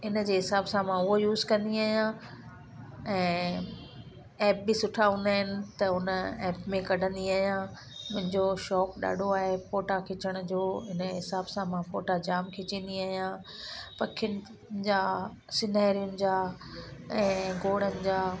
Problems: constant background noise